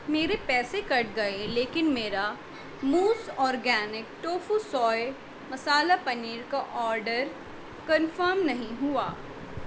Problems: background sounds at intervals